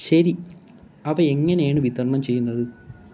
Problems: background sounds at intervals